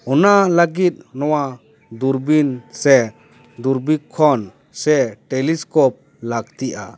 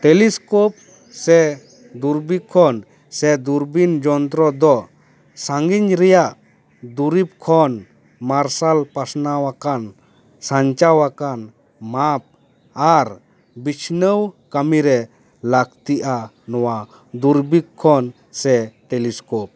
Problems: none marked